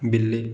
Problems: none marked